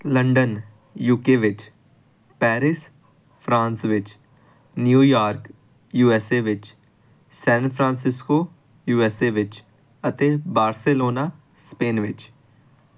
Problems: none marked